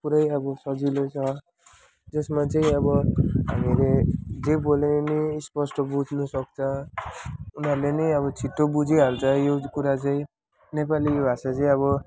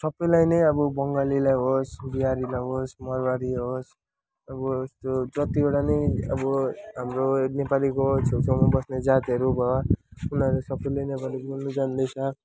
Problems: background sounds at intervals, background conversations at intervals